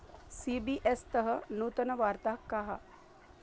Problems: low volume